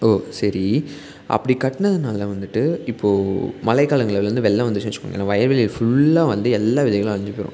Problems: none marked